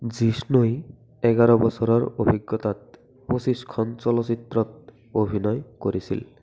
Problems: continuous background conversations